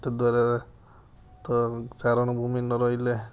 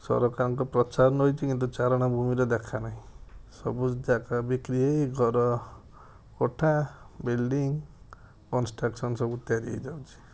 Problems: none marked